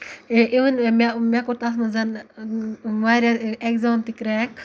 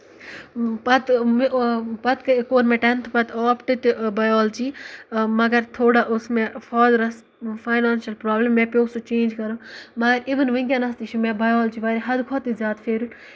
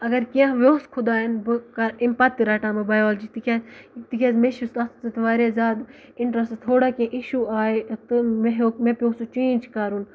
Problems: background sounds at intervals, background conversations at intervals